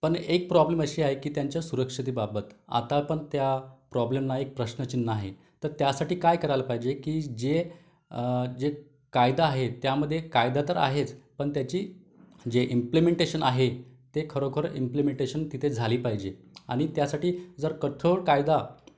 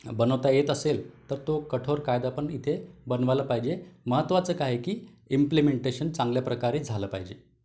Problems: background sounds at intervals